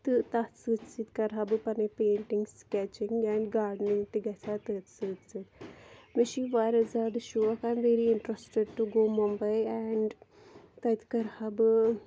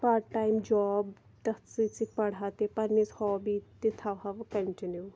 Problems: none marked